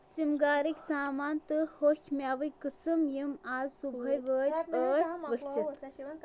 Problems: continuous background conversations